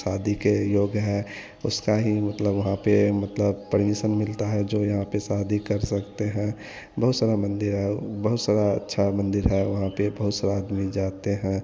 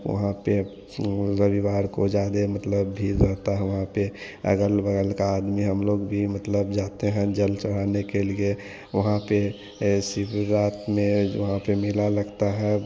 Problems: none marked